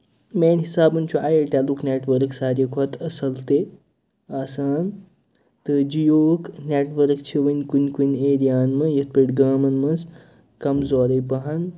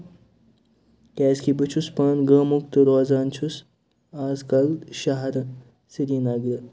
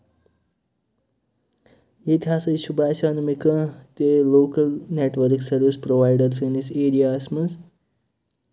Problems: none marked